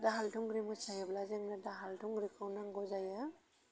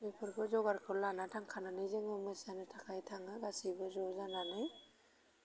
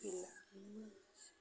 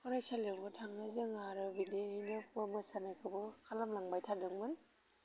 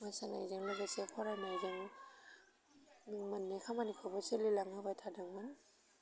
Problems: low volume